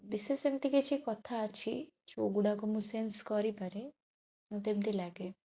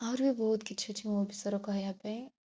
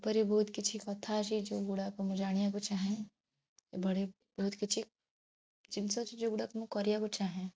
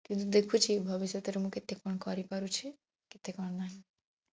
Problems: none marked